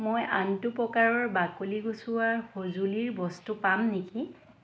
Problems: none marked